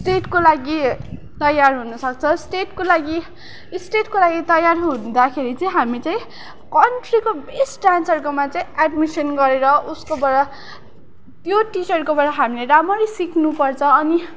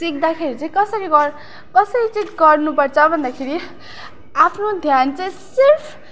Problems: background sounds at intervals, background conversations at intervals